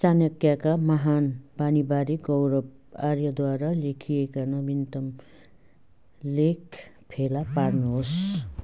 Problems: background sounds at intervals